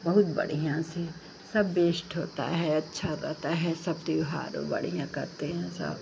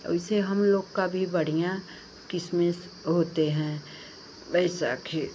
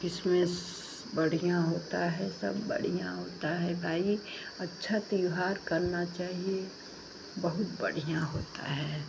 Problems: constant background noise